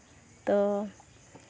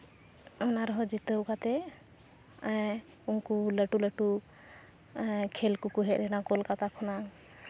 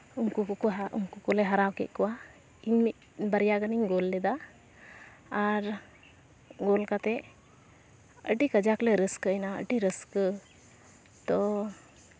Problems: constant background noise